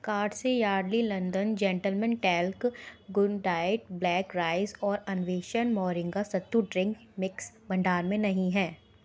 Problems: background sounds at intervals